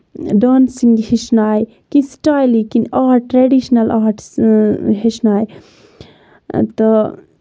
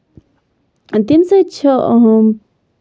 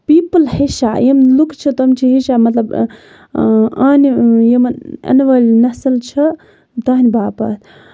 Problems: background sounds at intervals